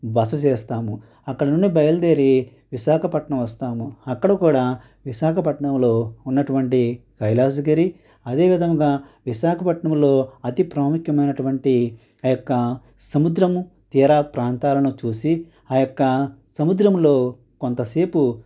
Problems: constant background noise